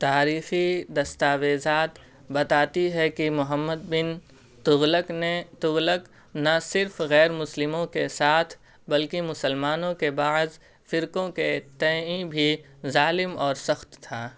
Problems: constant background noise